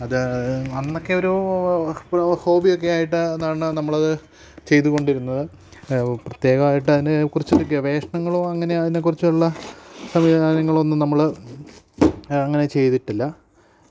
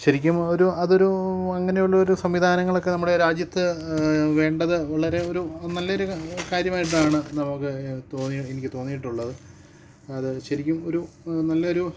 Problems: low volume